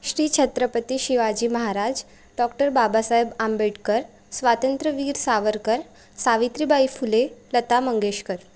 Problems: constant background noise